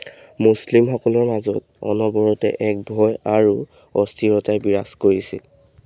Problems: background sounds at intervals